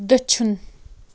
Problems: none marked